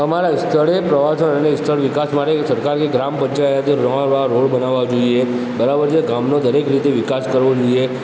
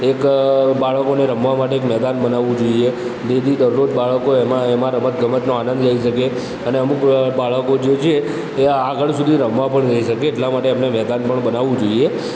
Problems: constant background noise